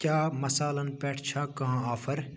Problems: none marked